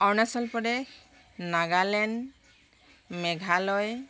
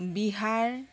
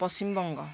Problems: none marked